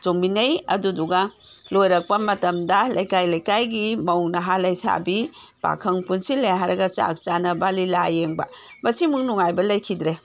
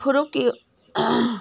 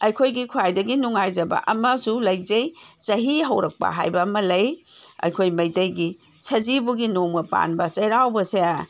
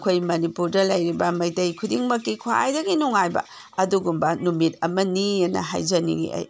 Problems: background sounds at intervals